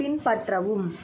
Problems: constant background noise, background conversations at intervals